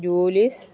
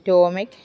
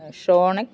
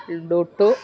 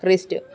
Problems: none marked